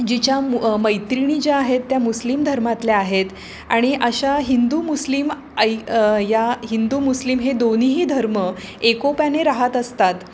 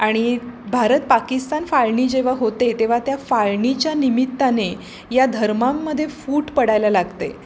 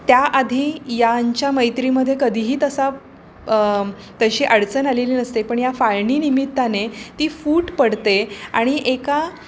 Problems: constant background noise